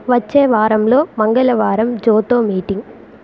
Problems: constant background noise